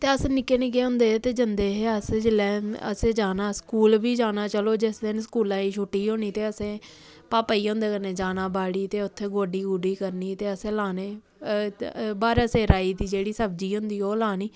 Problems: none marked